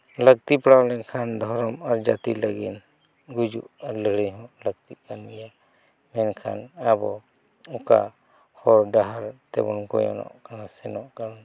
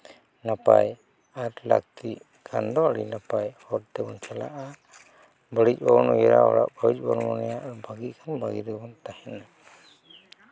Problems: none marked